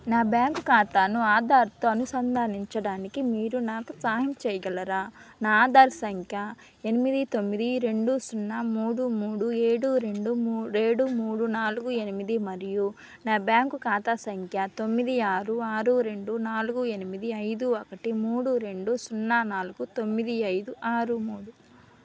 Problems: none marked